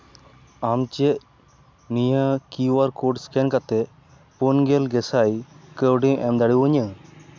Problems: background sounds at intervals